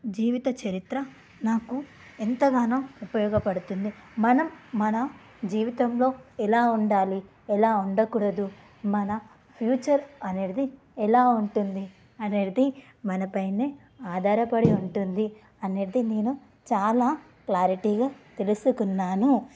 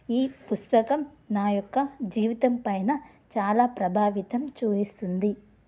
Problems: none marked